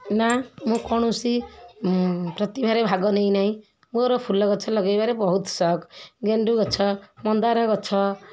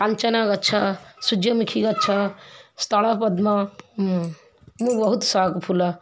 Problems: continuous background conversations